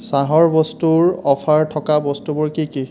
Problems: constant background noise